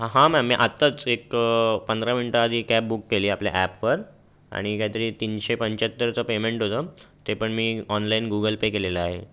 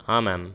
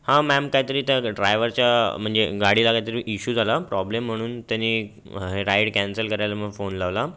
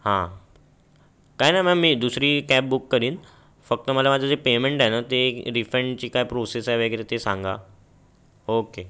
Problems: constant background noise